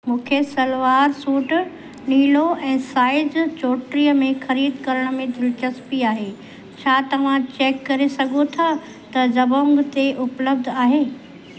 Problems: constant background noise, echo